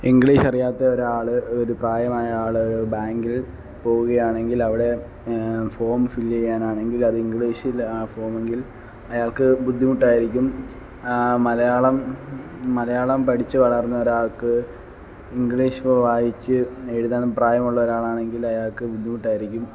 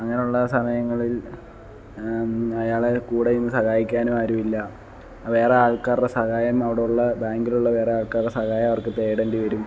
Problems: none marked